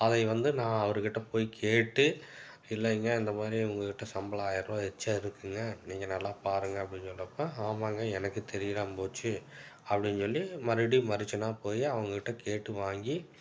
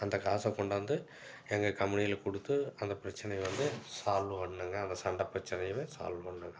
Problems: none marked